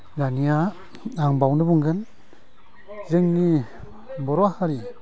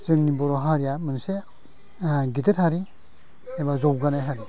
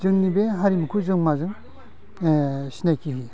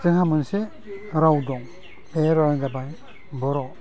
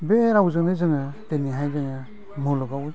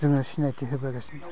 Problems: low volume